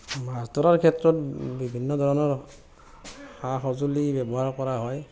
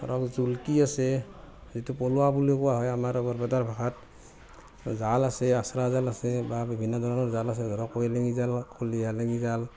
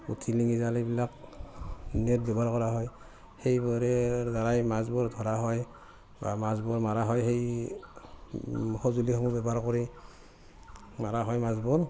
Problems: constant background noise